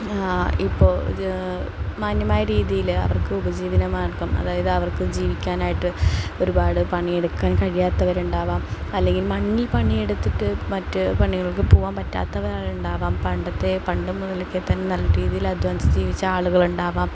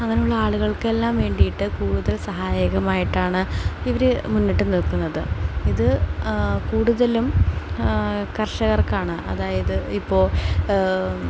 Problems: none marked